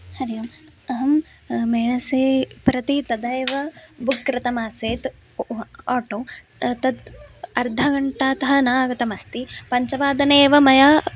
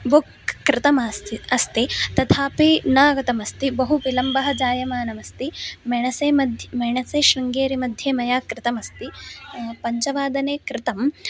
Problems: constant background noise, continuous background conversations